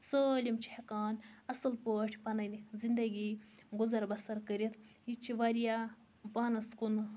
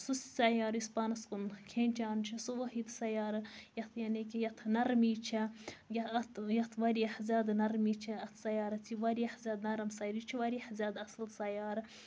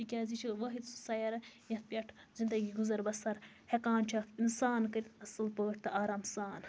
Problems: none marked